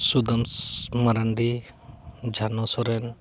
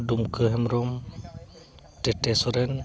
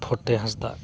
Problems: continuous background conversations